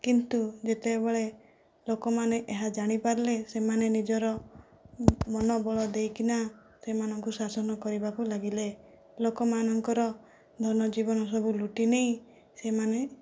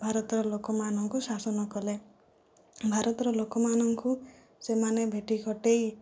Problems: low volume